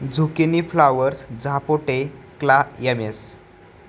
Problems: constant background noise